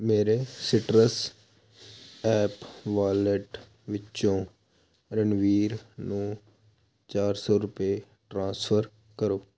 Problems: constant background noise